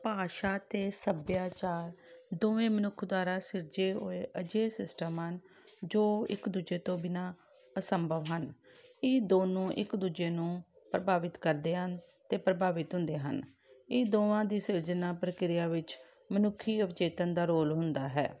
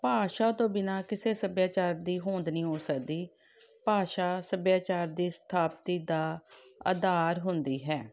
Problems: background sounds at intervals